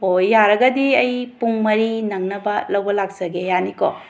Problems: background sounds at intervals